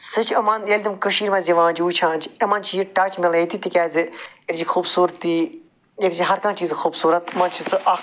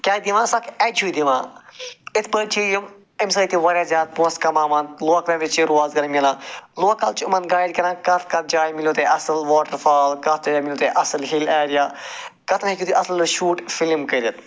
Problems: constant background noise